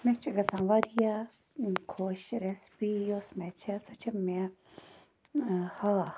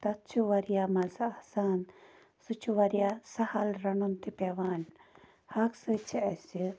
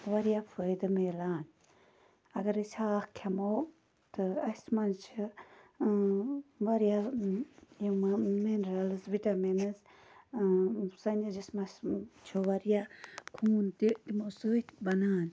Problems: none marked